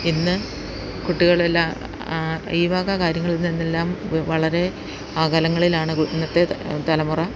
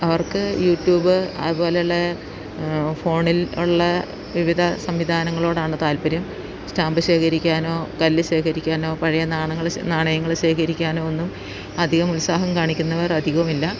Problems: constant background noise